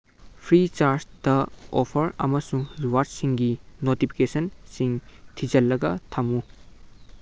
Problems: none marked